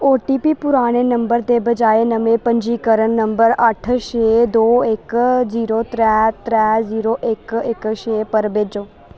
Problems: constant background noise